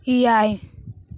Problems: constant background noise